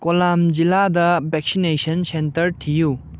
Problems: low volume